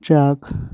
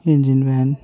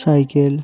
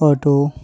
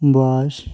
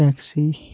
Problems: none marked